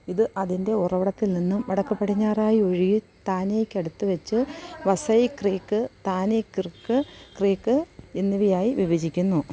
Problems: constant background noise